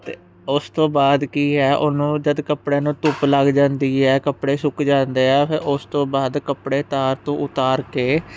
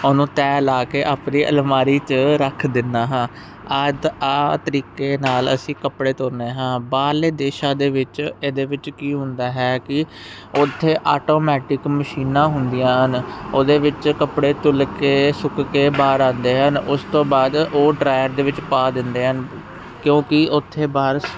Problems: constant background noise